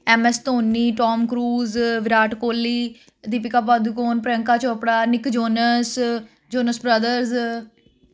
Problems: constant background noise